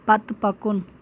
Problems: constant background noise